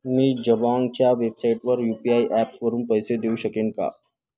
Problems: constant background noise, background conversations at intervals